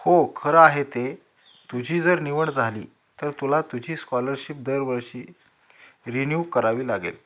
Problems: background sounds at intervals